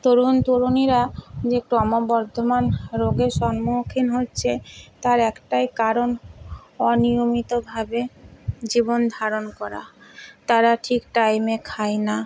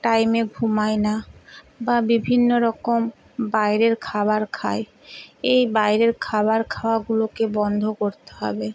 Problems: none marked